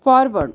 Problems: none marked